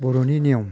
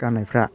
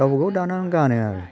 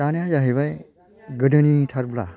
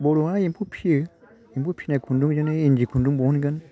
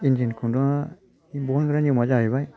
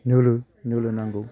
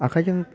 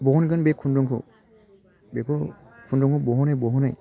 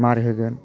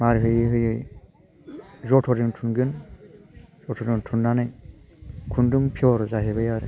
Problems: constant background noise